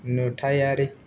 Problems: none marked